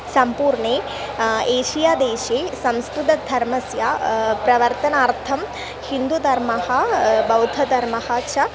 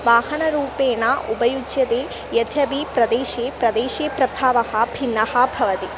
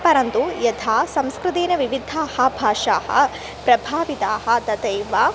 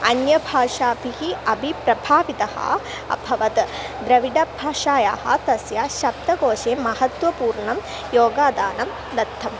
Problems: constant background noise